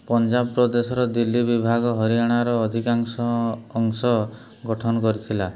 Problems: none marked